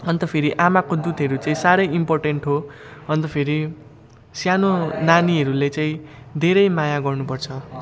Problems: constant background noise, continuous background conversations